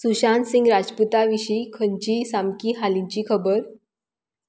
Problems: none marked